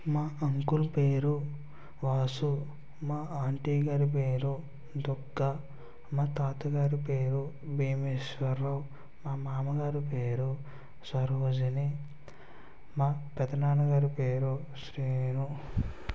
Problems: constant background noise, low volume